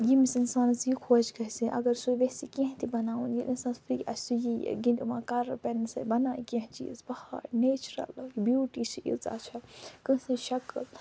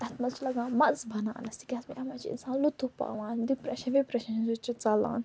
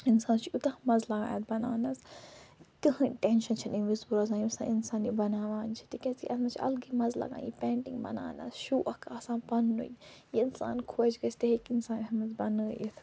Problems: background sounds at intervals, low volume